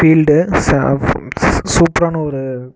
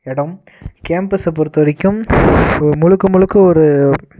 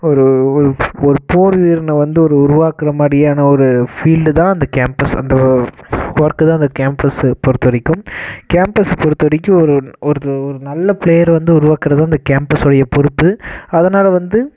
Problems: constant background noise